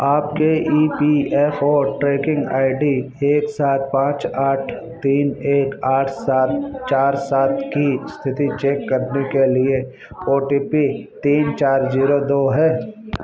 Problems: constant background noise